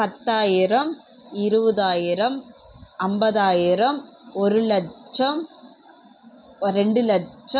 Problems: background sounds at intervals